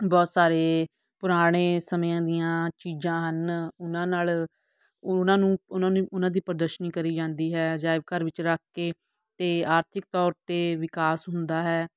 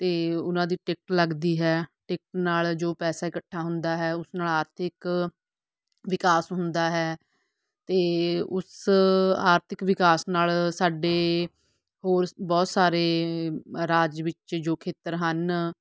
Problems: none marked